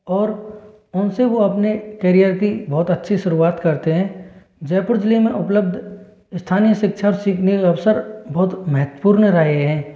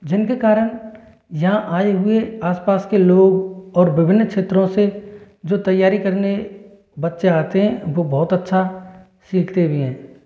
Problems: constant background noise, echo